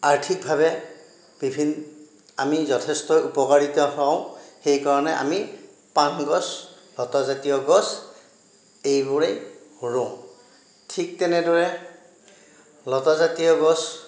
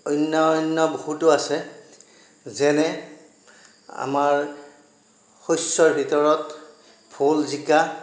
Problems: none marked